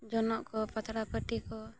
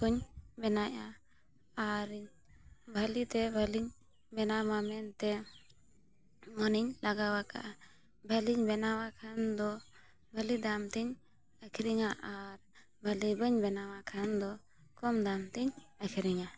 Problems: none marked